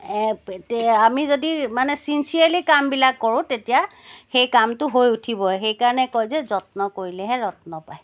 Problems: none marked